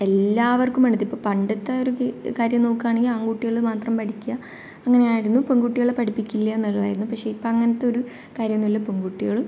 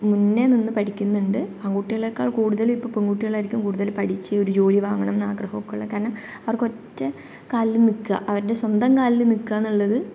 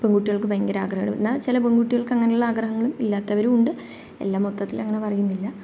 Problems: none marked